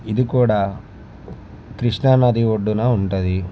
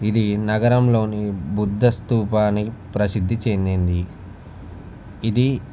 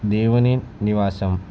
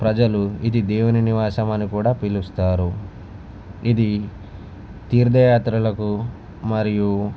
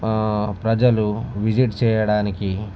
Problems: none marked